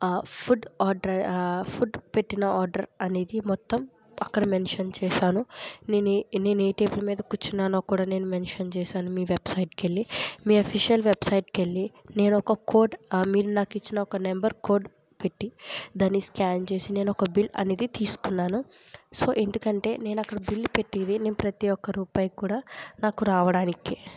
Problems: low volume